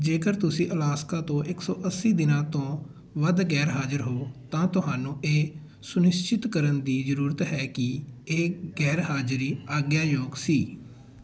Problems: continuous background conversations